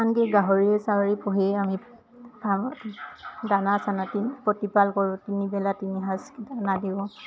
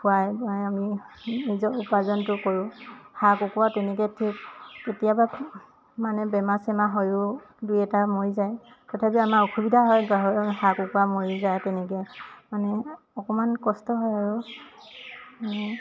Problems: constant background noise, background conversations at intervals